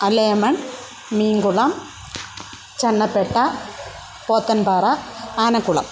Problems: constant background noise